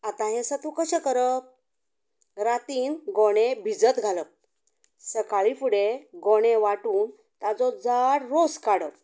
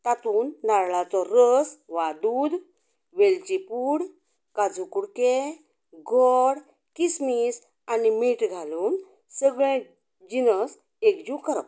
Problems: none marked